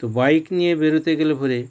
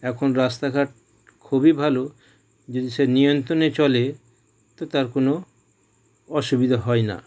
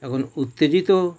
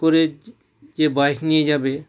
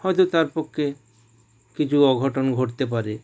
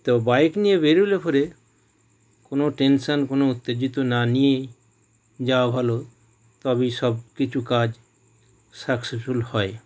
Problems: background sounds at intervals